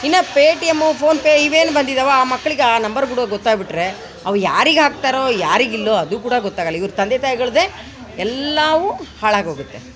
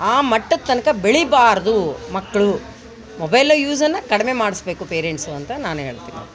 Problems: background sounds at intervals